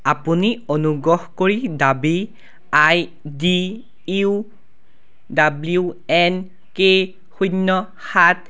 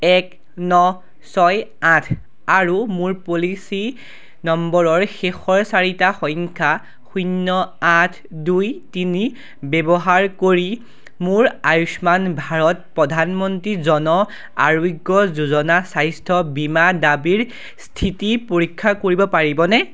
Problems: background sounds at intervals